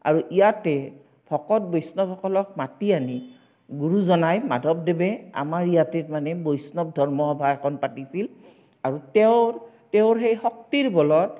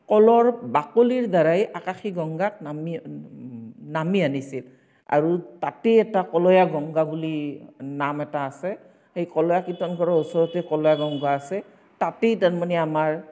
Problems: none marked